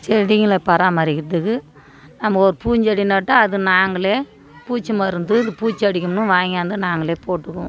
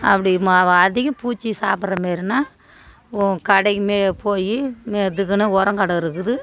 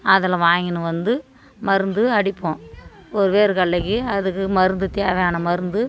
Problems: continuous background conversations